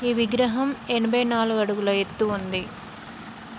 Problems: constant background noise